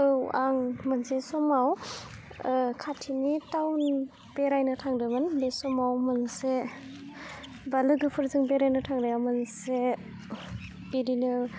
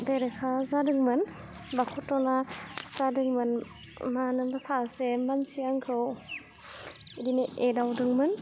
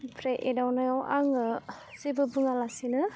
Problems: low volume